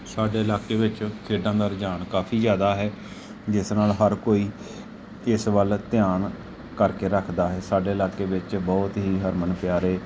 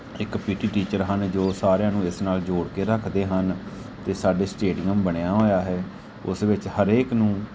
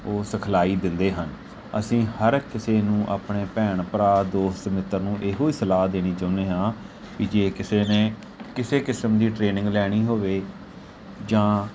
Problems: background sounds at intervals